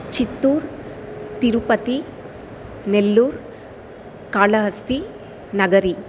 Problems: constant background noise